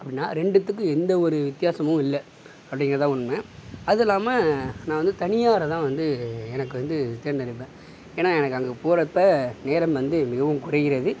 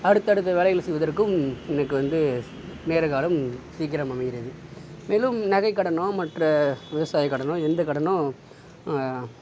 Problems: background sounds at intervals